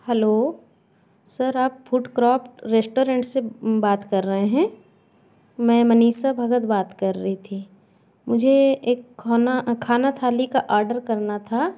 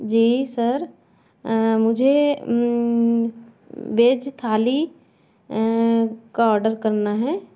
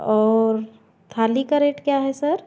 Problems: constant background noise, background conversations at intervals